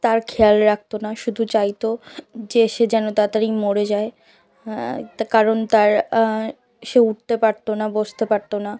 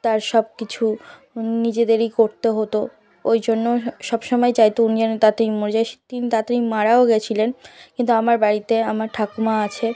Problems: continuous background conversations